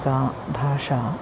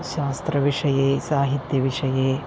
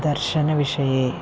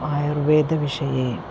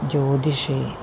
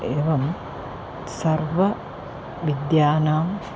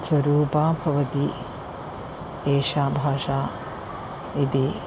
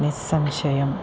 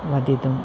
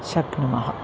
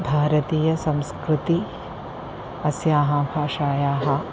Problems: constant background noise